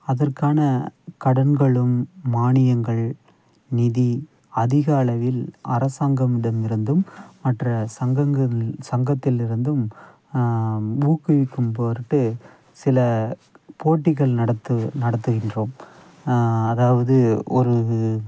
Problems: background sounds at intervals